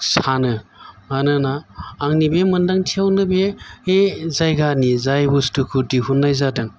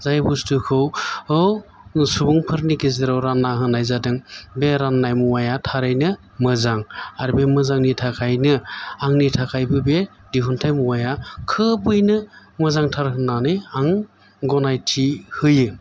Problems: constant background noise